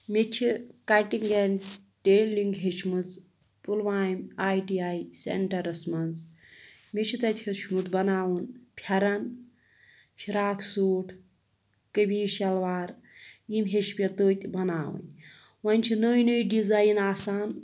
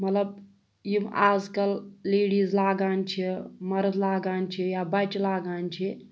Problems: background sounds at intervals